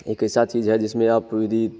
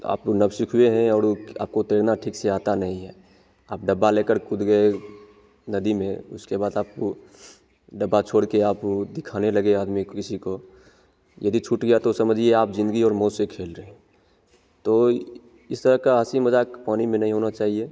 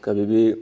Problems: none marked